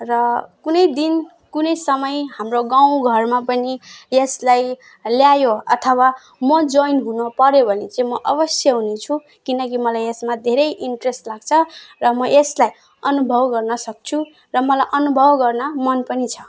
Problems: none marked